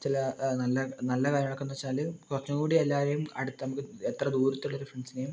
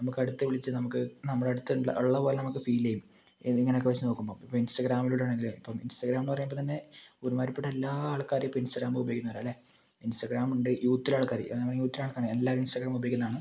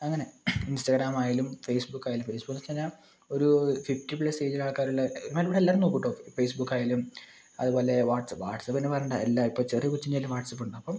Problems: low volume